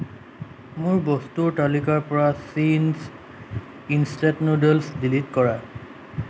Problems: constant background noise